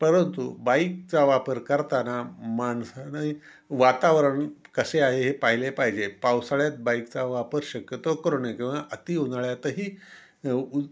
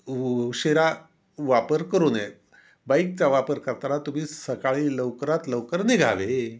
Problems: background sounds at intervals